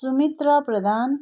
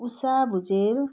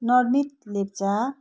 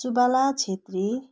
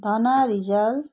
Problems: background sounds at intervals